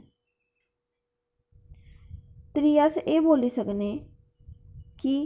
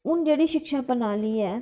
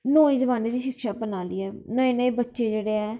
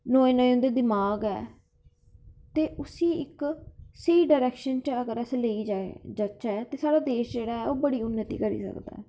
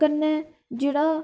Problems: background sounds at intervals